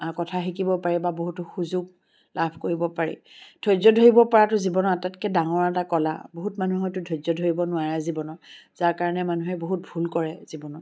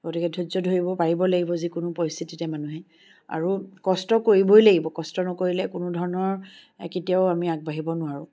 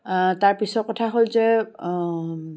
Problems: background sounds at intervals